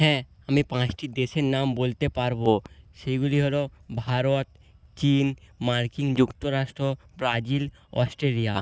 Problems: constant background noise